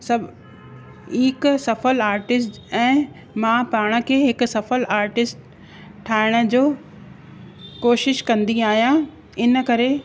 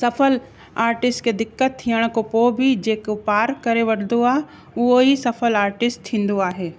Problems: constant background noise